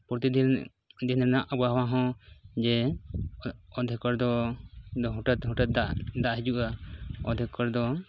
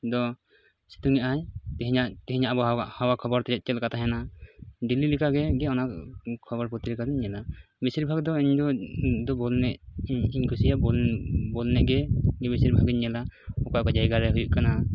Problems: none marked